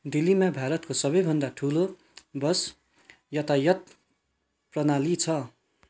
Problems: none marked